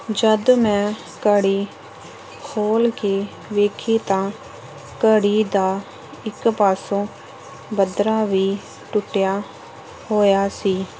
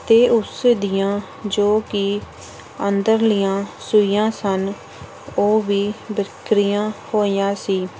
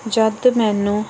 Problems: constant background noise